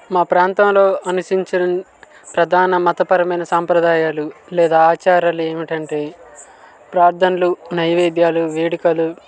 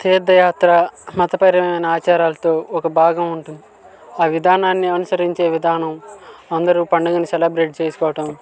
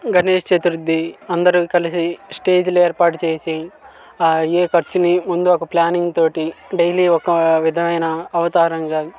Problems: constant background noise, background conversations at intervals